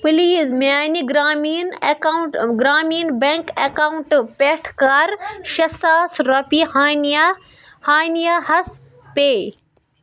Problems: background sounds at intervals, background conversations at intervals